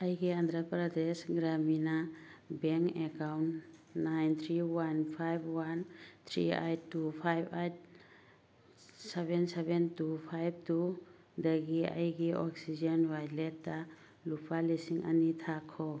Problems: none marked